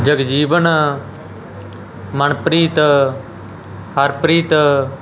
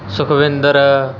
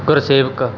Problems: constant background noise